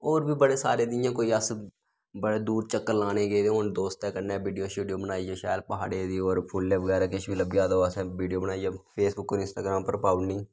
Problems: none marked